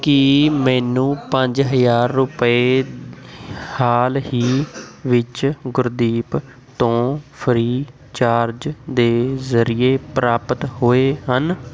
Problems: constant background noise, continuous background conversations